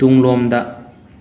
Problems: none marked